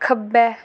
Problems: constant background noise